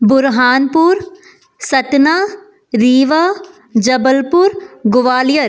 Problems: background sounds at intervals